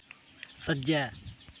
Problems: constant background noise